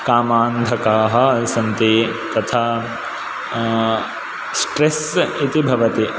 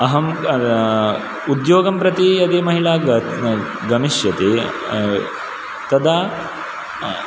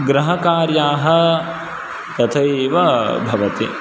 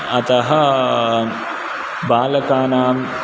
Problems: none marked